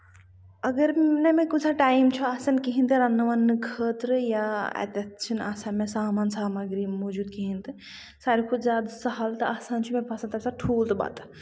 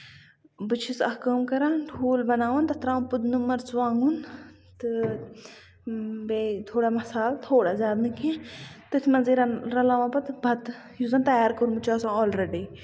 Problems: constant background noise, low volume